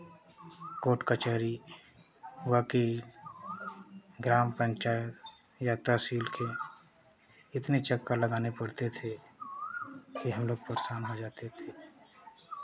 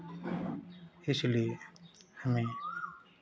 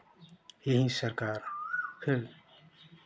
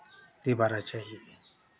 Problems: constant background noise, continuous background conversations